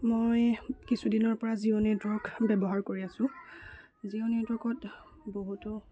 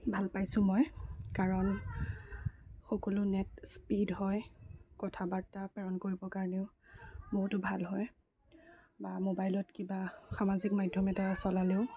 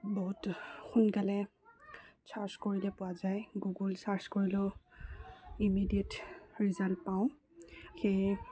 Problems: low volume